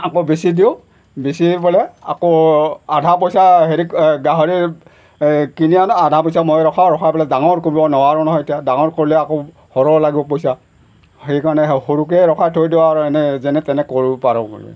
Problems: background sounds at intervals